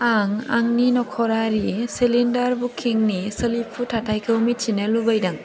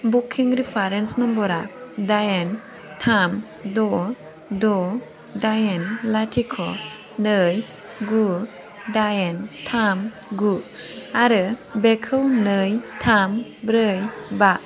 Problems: constant background noise